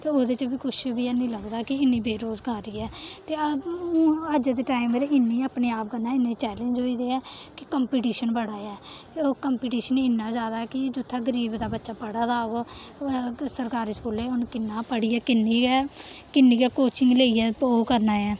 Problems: constant background noise